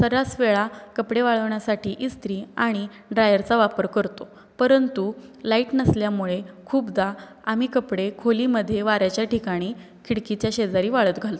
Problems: constant background noise